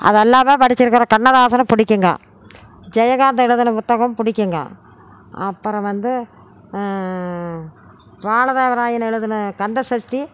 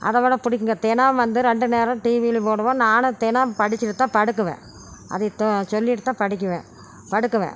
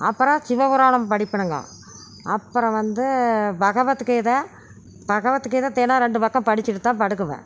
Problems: none marked